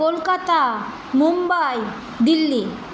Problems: none marked